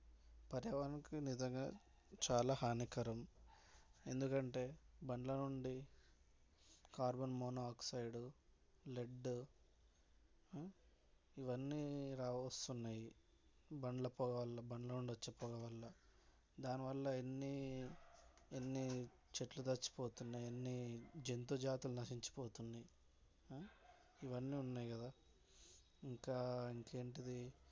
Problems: background sounds at intervals